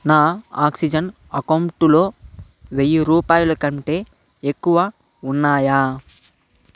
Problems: constant background noise